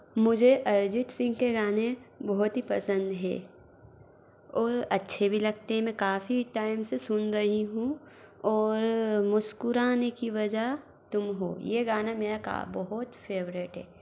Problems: background sounds at intervals